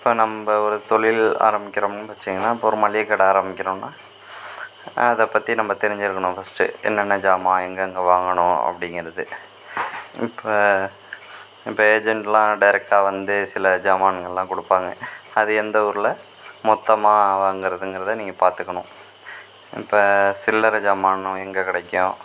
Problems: constant background noise